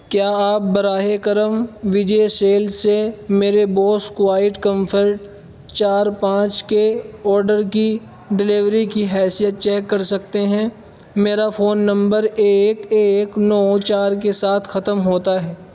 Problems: constant background noise